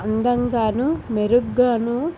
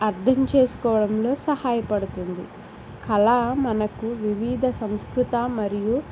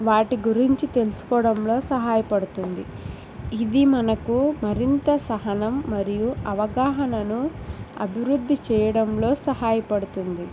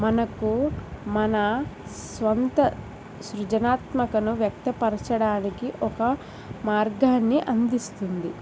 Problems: none marked